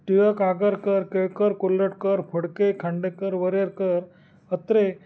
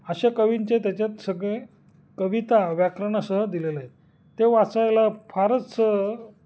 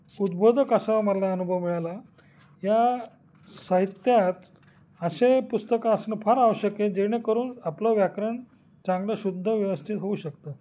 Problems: constant background noise, background conversations at intervals